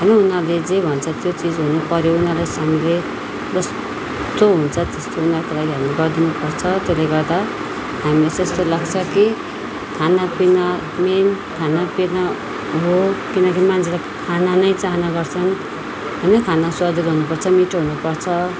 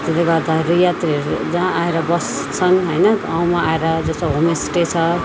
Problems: background sounds at intervals